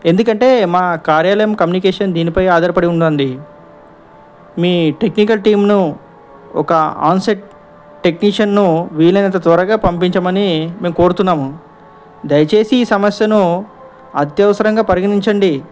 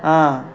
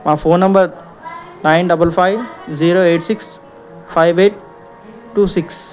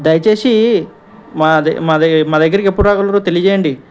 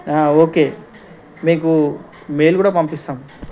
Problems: background conversations at intervals